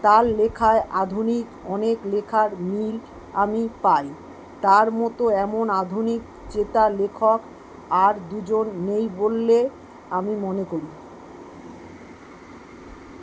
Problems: none marked